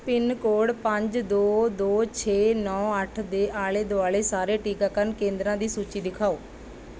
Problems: background sounds at intervals